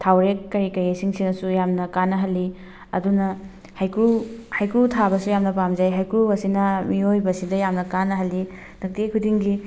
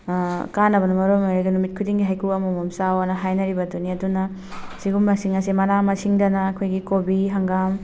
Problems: background sounds at intervals